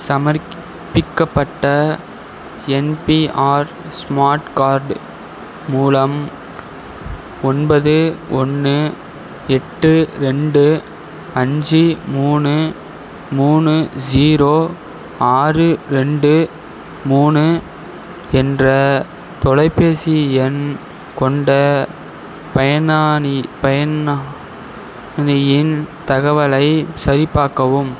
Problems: none marked